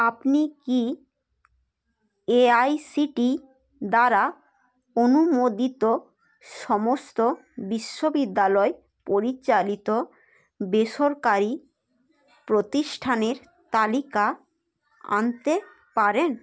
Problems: background sounds at intervals, background conversations at intervals